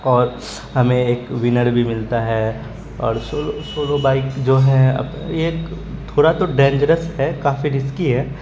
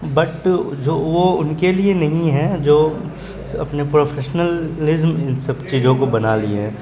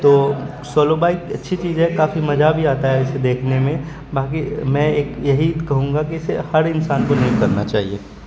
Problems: constant background noise, background conversations at intervals